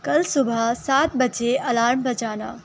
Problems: none marked